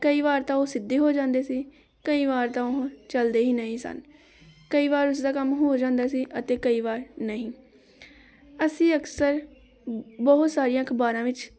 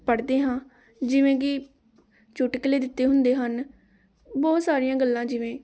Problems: continuous background conversations